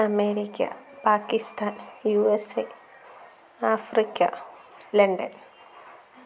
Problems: low volume